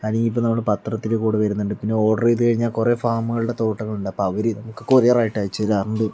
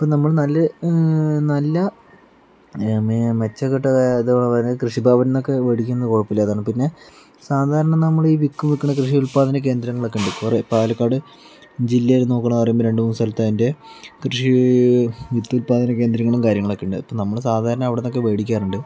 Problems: background sounds at intervals, background conversations at intervals